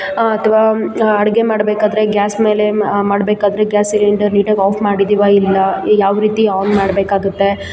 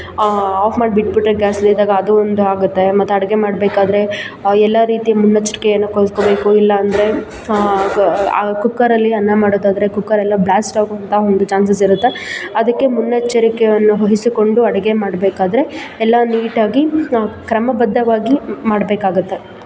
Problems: constant background noise